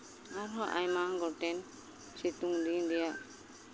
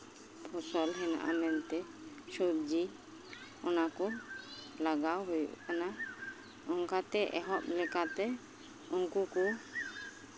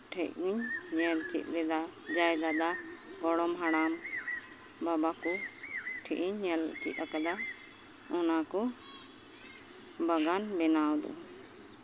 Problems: constant background noise, background conversations at intervals